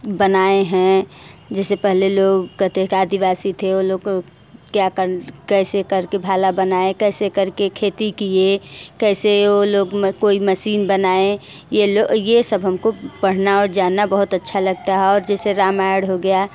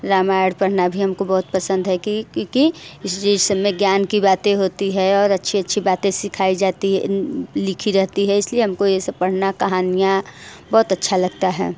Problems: constant background noise, echo